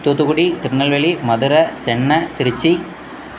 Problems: background sounds at intervals